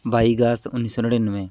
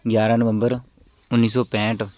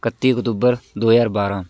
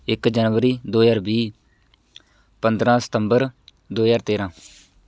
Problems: none marked